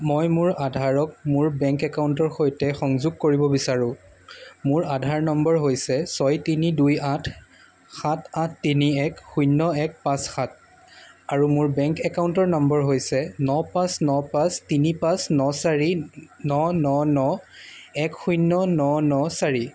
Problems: constant background noise